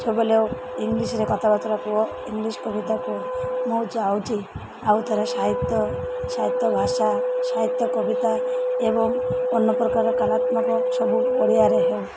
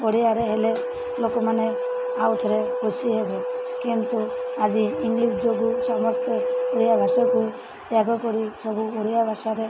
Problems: constant background noise